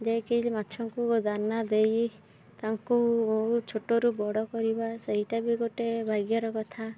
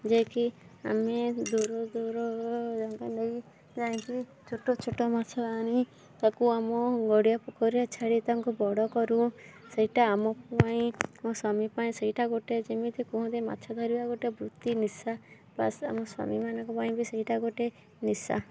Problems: background sounds at intervals